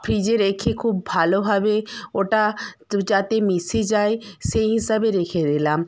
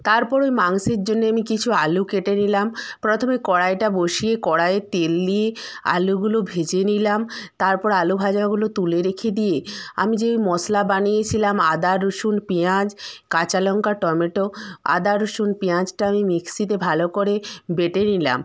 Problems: background conversations at intervals